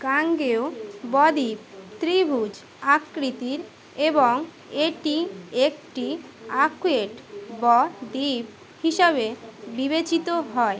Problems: constant background noise, continuous background conversations